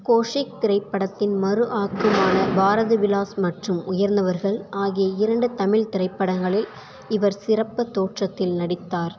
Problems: background sounds at intervals